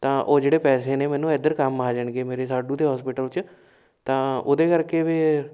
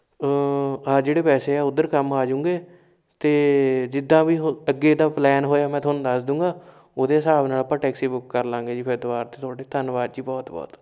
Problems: background sounds at intervals